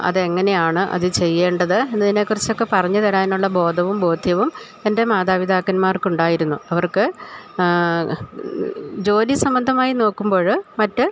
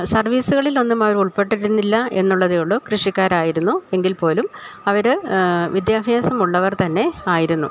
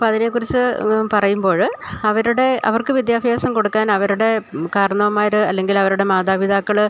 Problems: none marked